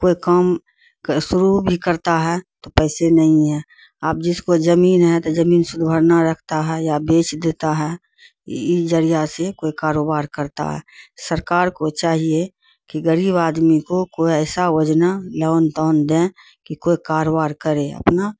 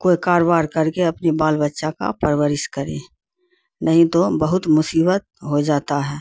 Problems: none marked